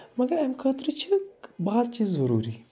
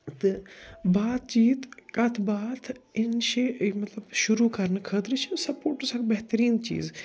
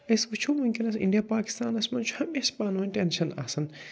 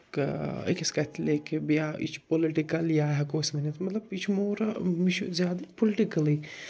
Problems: none marked